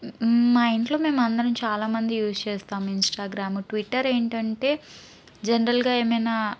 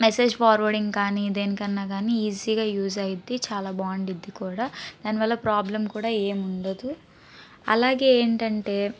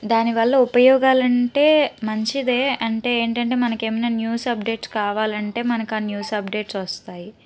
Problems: background conversations at intervals